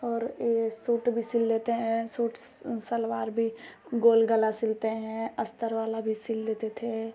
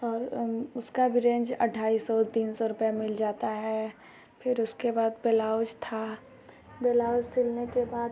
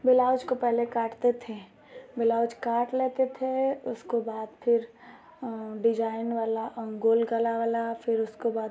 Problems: constant background noise